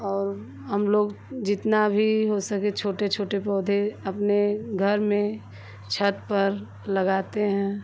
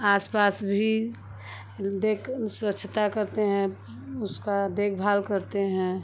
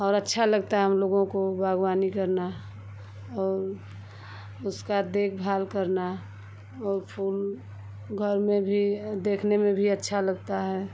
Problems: none marked